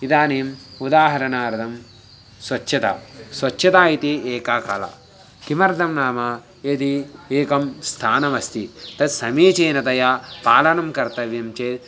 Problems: none marked